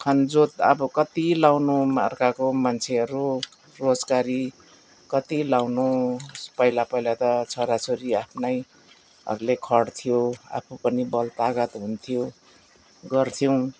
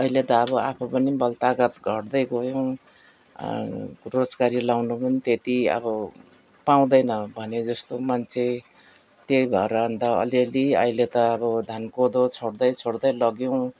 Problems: none marked